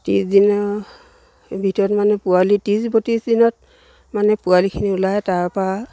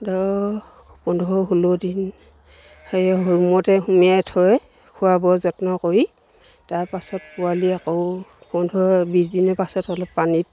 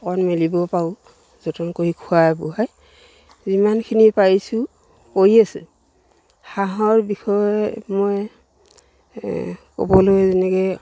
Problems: none marked